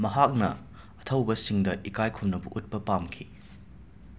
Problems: background sounds at intervals